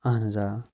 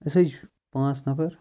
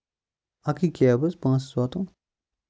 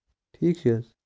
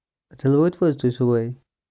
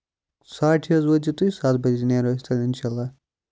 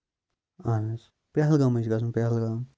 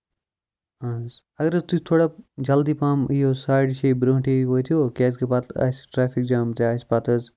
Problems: none marked